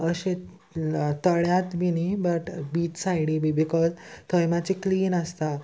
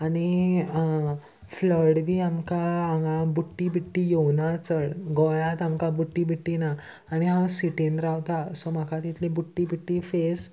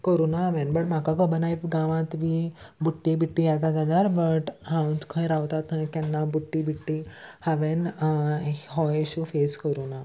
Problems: constant background noise